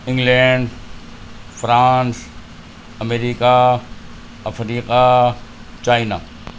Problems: constant background noise